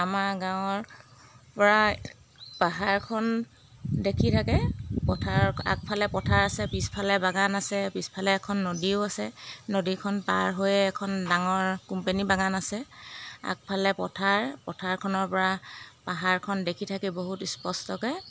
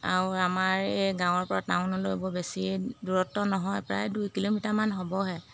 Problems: background sounds at intervals